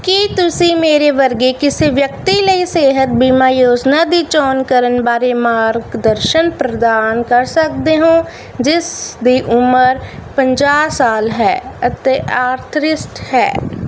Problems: none marked